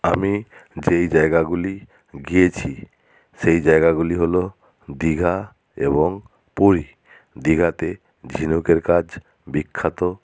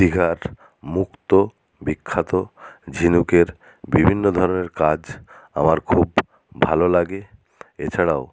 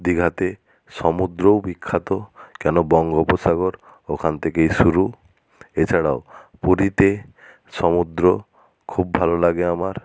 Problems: none marked